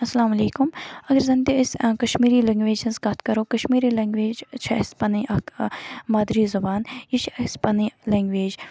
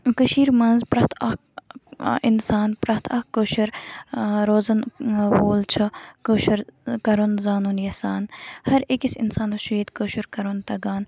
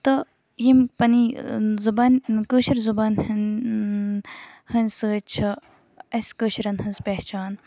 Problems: background sounds at intervals